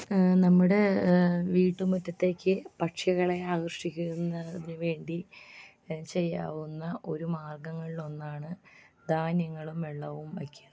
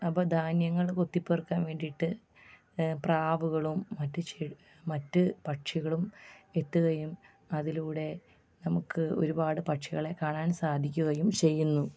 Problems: low volume